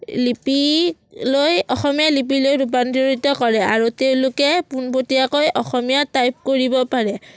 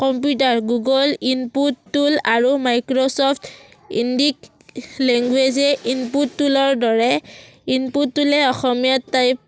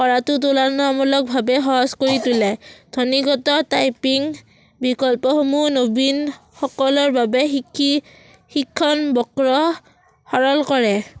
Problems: none marked